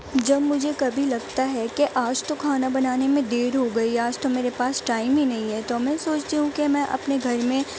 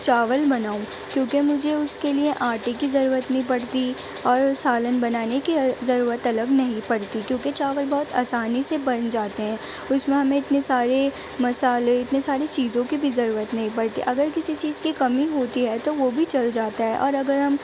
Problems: constant background noise